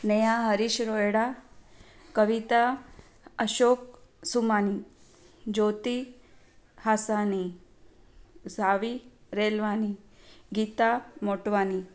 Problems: none marked